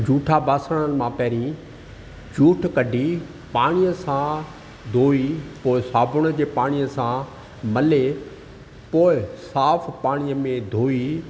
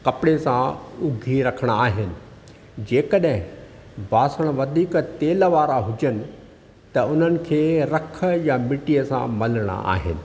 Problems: constant background noise